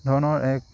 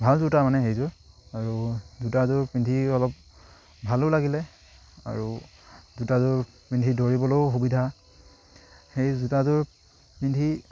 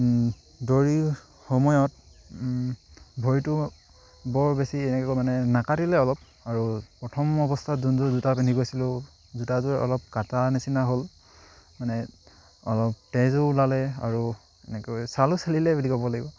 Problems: none marked